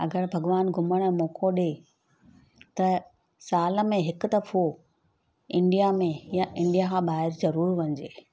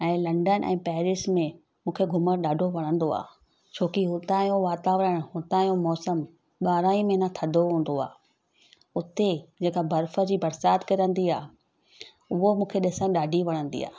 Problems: none marked